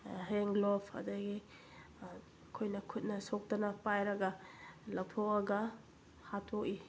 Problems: constant background noise